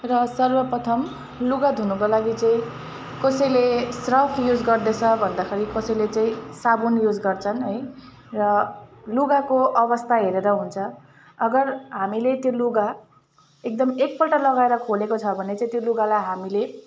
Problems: constant background noise, continuous background conversations